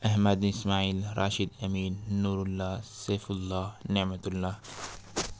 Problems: none marked